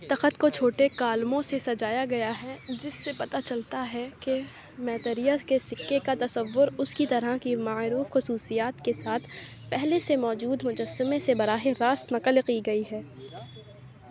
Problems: constant background noise, background conversations at intervals